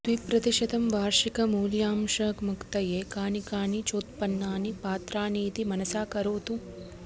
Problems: constant background noise